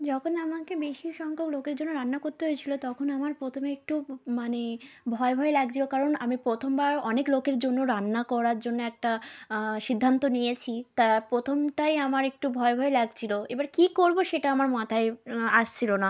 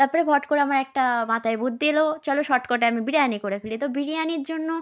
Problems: background conversations at intervals